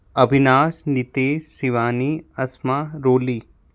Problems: none marked